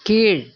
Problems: none marked